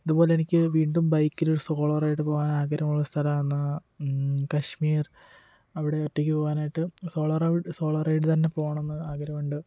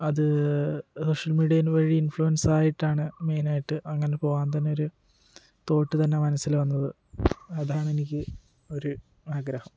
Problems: none marked